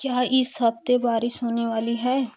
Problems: none marked